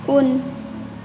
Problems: constant background noise